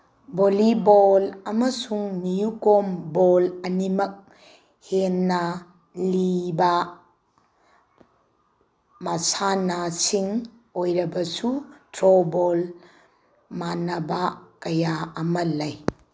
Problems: constant background noise